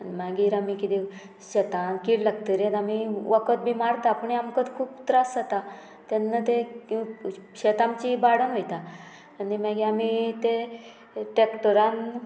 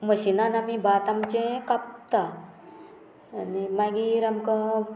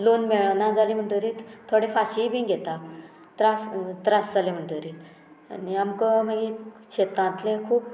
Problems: background sounds at intervals